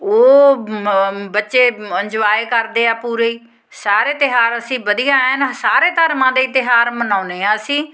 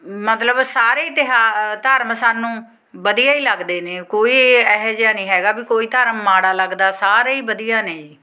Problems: background sounds at intervals